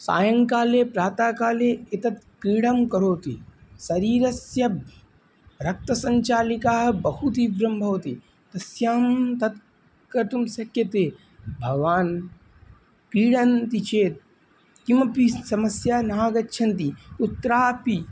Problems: none marked